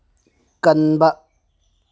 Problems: none marked